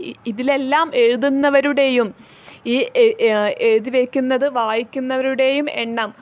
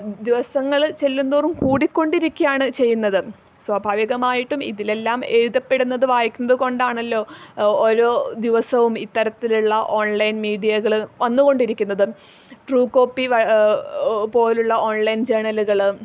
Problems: none marked